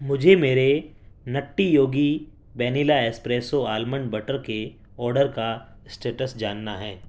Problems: background sounds at intervals